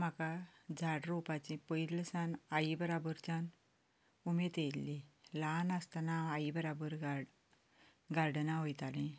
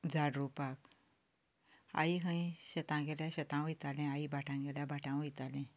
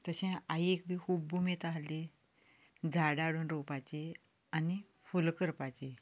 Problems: none marked